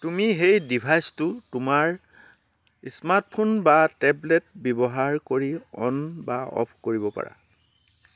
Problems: background sounds at intervals